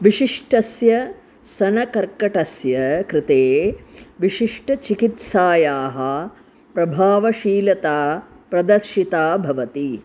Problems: constant background noise